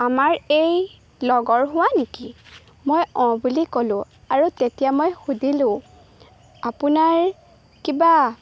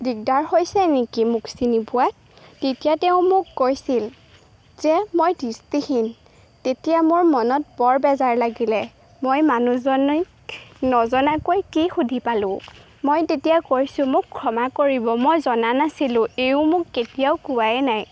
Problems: background sounds at intervals